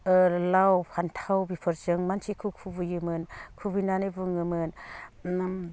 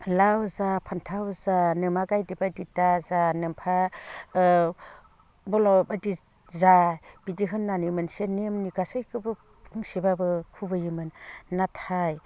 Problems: low volume